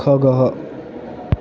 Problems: none marked